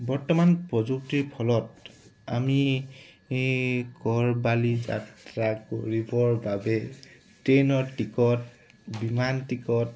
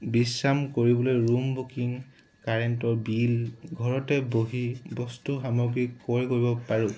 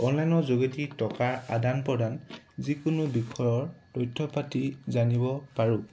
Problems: background sounds at intervals